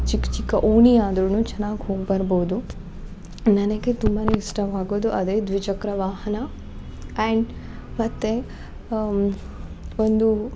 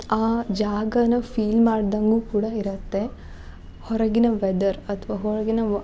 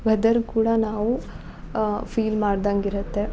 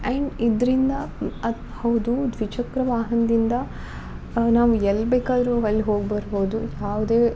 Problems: background sounds at intervals